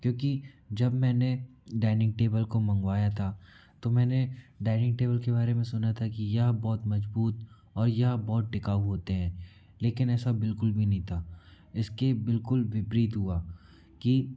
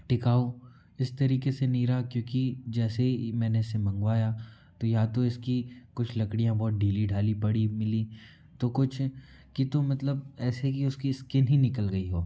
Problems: background sounds at intervals